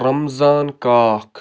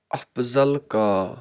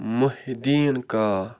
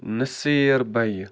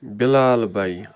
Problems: constant background noise